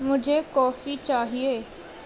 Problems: constant background noise, low volume